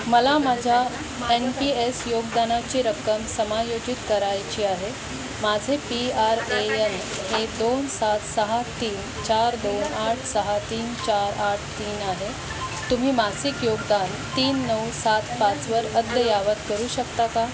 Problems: constant background noise, continuous background conversations